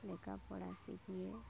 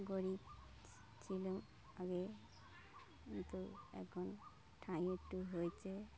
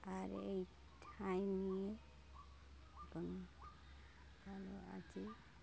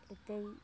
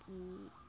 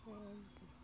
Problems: none marked